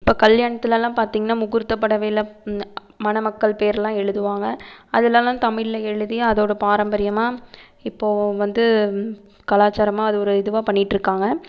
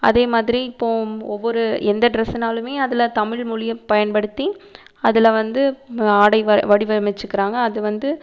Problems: none marked